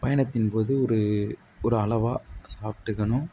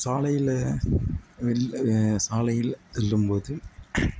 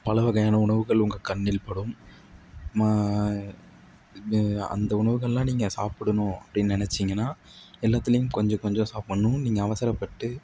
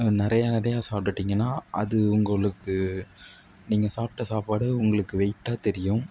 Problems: none marked